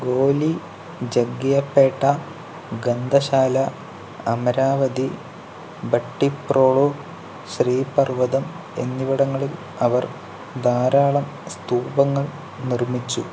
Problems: constant background noise